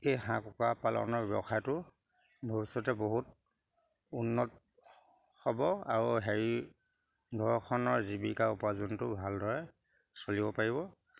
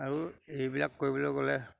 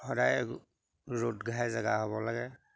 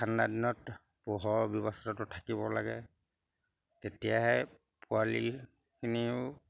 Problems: background sounds at intervals